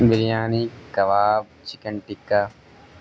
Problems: constant background noise